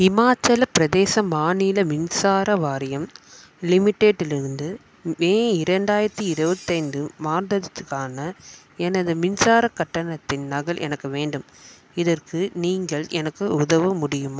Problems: background sounds at intervals